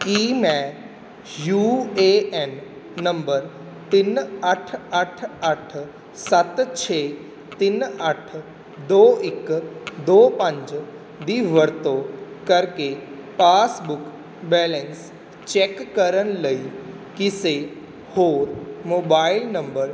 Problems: none marked